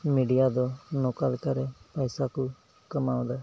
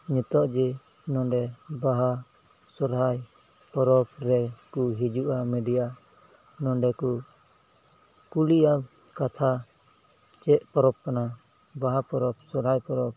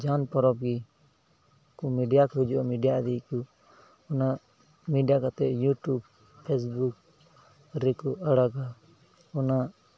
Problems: background sounds at intervals, low volume